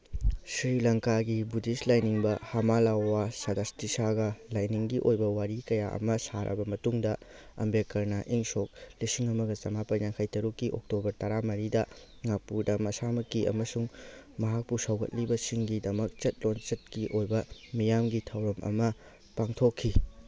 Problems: background sounds at intervals